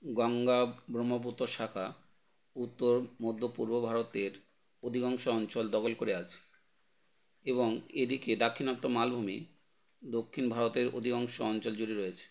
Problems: none marked